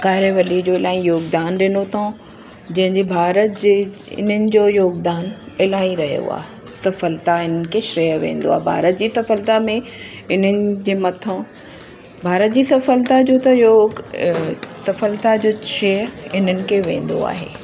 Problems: constant background noise, echo